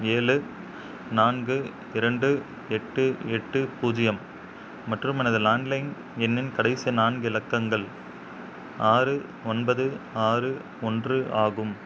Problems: background sounds at intervals